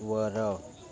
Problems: constant background noise